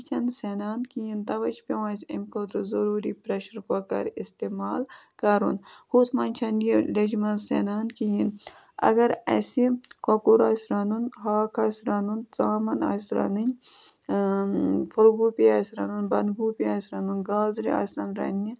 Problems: constant background noise